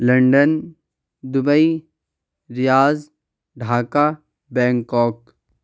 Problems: none marked